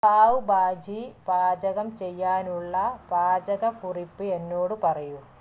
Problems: low volume